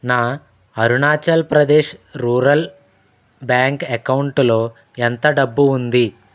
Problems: none marked